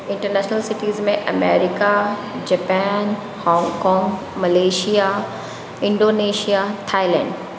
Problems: constant background noise